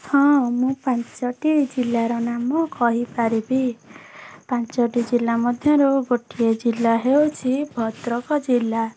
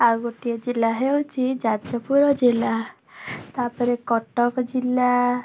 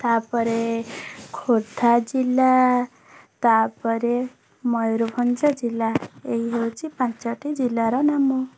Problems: background sounds at intervals